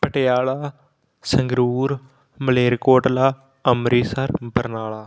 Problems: none marked